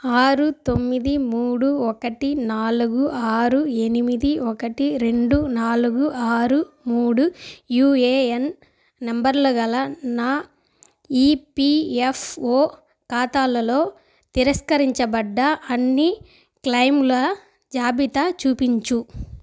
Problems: background sounds at intervals